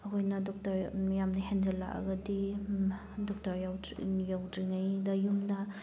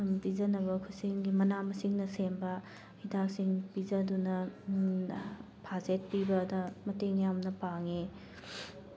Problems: background sounds at intervals